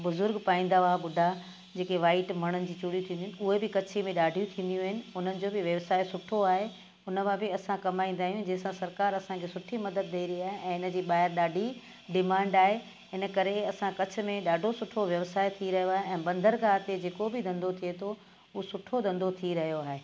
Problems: constant background noise